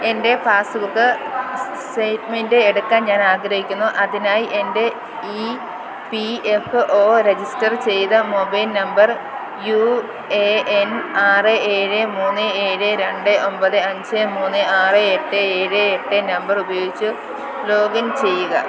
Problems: constant background noise